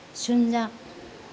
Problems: low volume